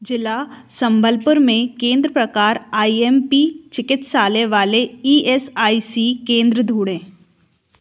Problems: none marked